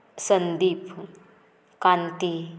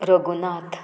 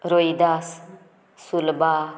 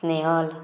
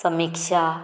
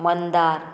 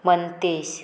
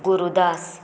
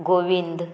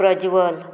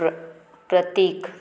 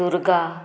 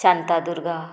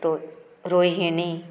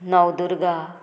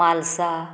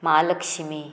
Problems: background sounds at intervals, background conversations at intervals